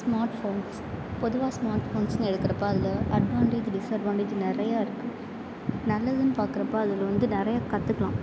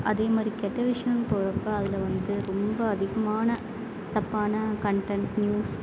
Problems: constant background noise